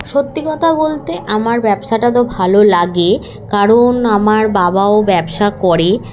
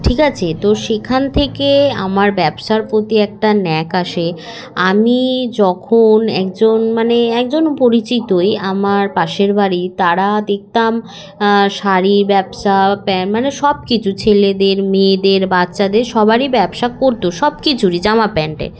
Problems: none marked